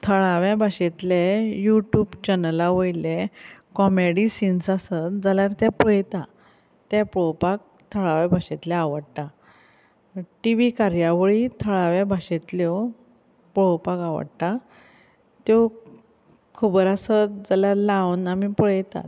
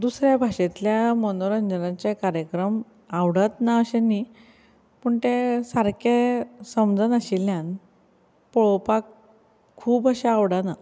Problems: background conversations at intervals